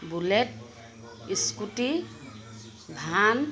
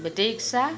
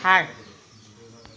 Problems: constant background noise